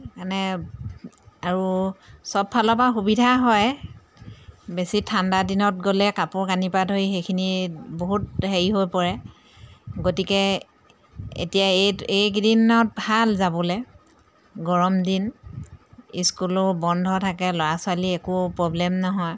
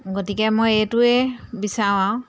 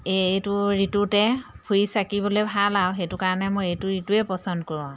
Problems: none marked